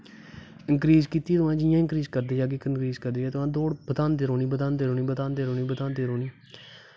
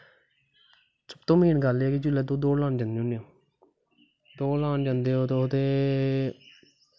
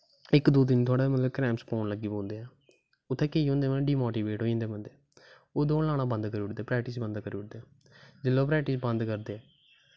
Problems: constant background noise